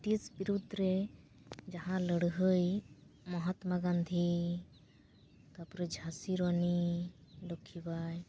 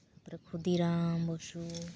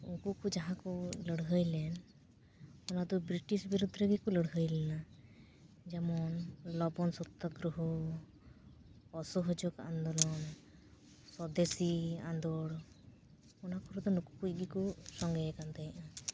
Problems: background sounds at intervals